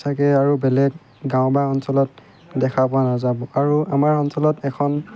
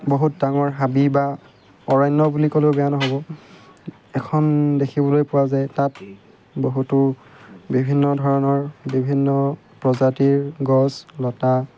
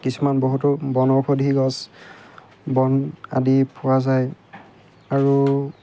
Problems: background sounds at intervals